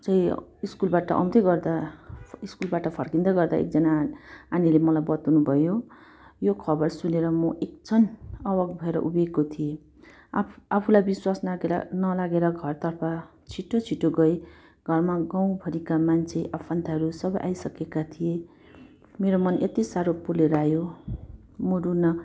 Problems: none marked